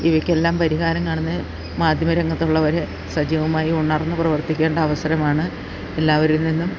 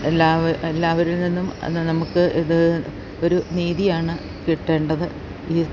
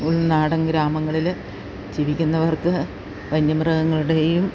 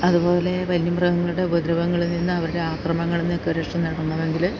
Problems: constant background noise